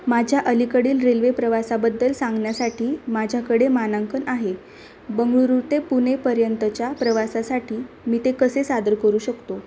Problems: none marked